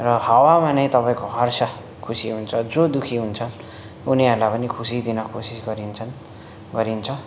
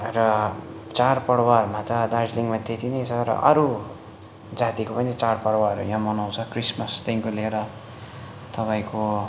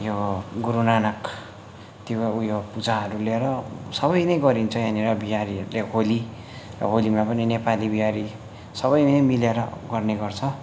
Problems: constant background noise